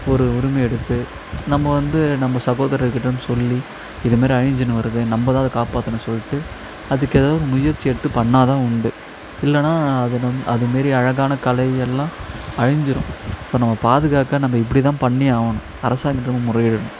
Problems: constant background noise